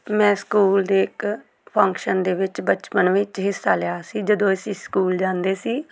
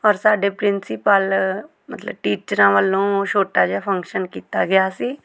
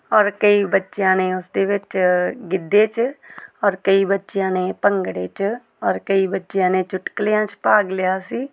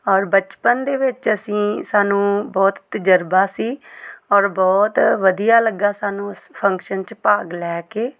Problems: background conversations at intervals